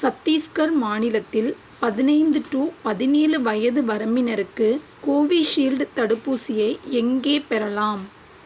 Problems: constant background noise